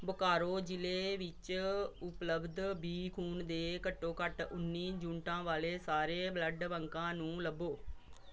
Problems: background sounds at intervals